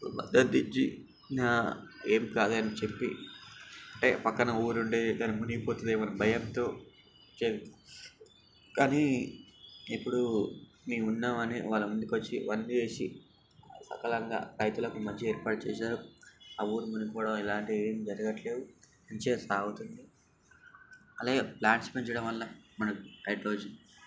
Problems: constant background noise